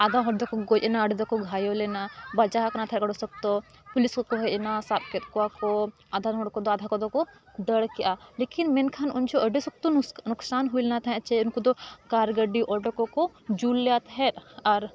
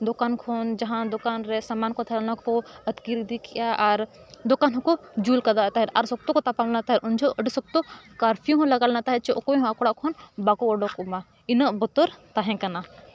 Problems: continuous background conversations